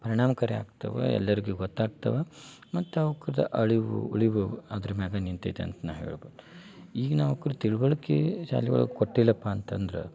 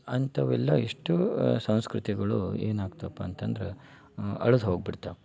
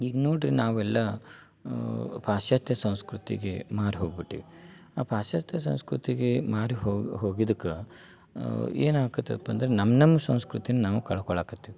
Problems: none marked